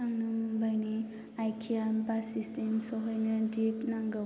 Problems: low volume